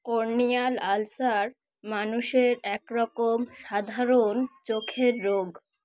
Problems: background sounds at intervals